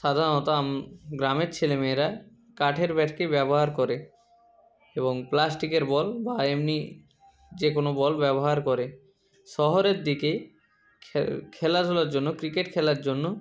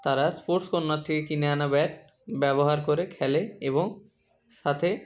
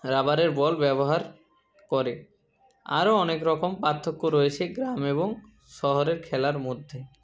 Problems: background sounds at intervals